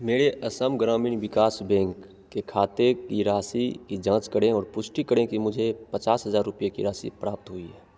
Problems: constant background noise, echo